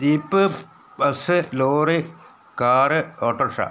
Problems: background sounds at intervals